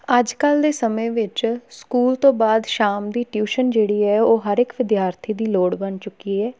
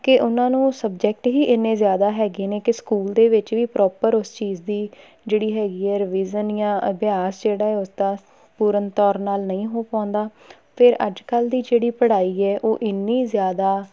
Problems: background conversations at intervals